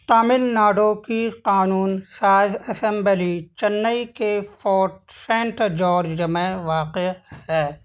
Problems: constant background noise